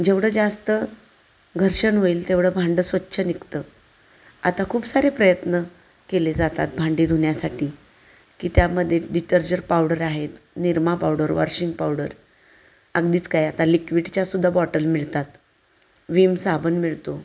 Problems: constant background noise, echo